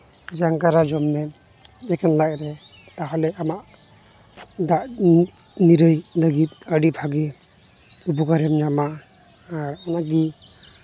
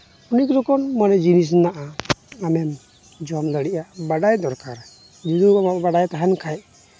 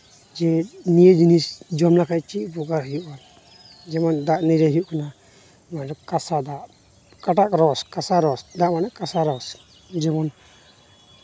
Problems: constant background noise